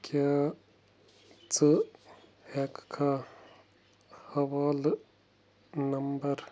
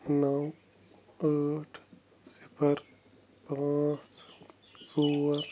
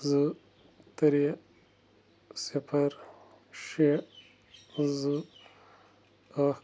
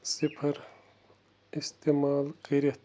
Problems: none marked